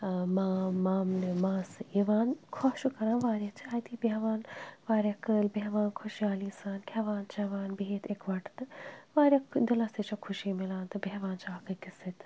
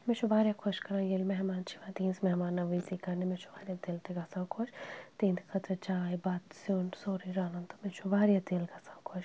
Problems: none marked